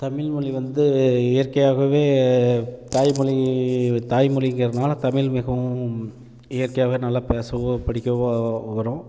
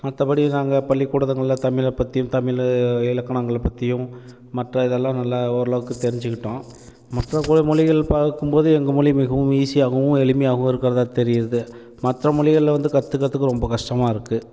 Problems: constant background noise